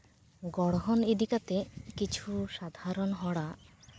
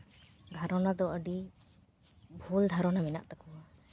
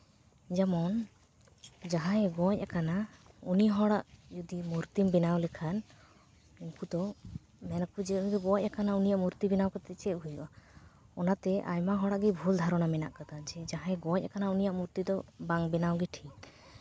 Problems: none marked